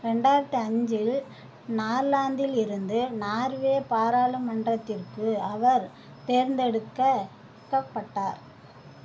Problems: constant background noise